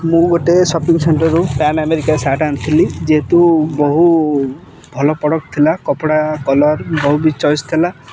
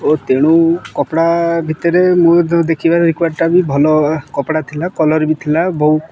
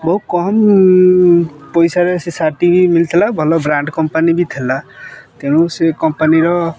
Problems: background sounds at intervals